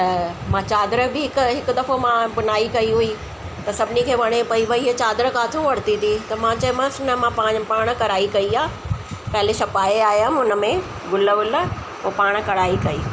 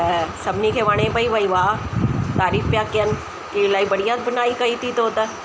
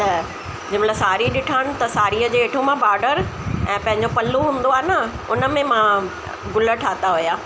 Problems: constant background noise, echo